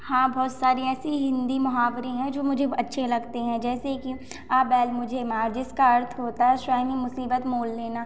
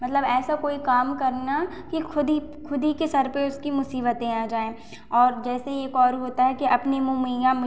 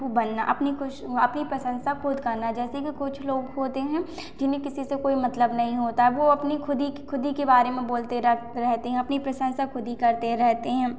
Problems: constant background noise, echo